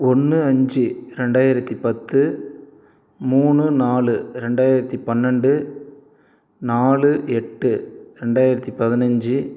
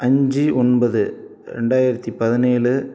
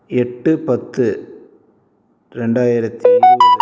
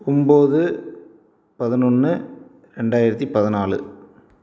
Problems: background sounds at intervals